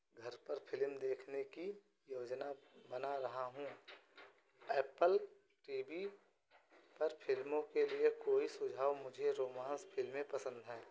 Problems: background sounds at intervals, echo